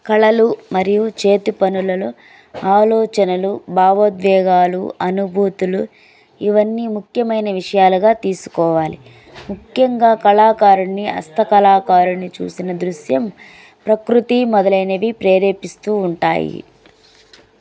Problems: none marked